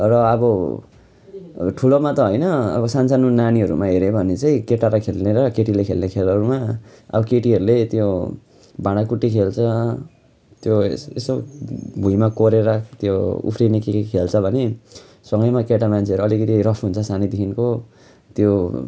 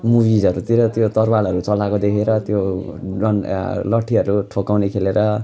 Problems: constant background noise